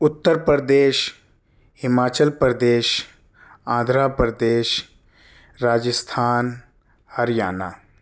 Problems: none marked